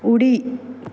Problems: background sounds at intervals